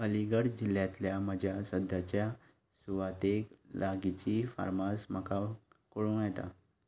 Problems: background sounds at intervals